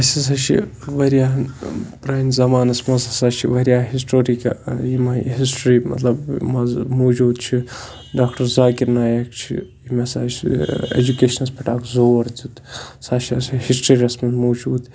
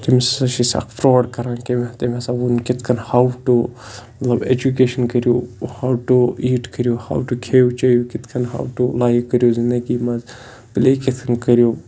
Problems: constant background noise